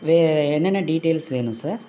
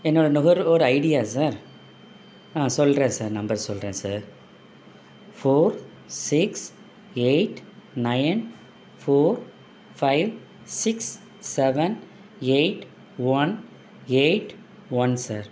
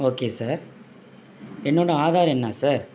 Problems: none marked